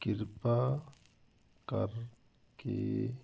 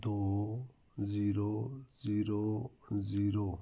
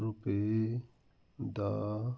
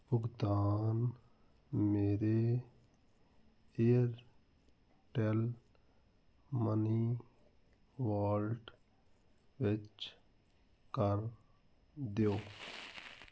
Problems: none marked